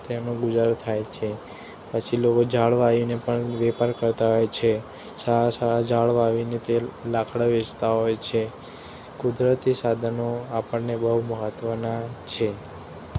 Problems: background sounds at intervals